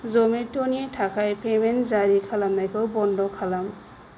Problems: low volume